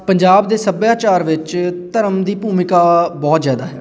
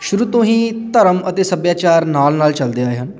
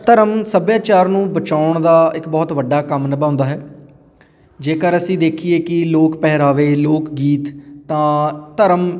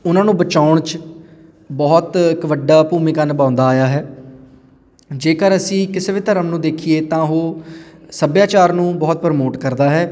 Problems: continuous background conversations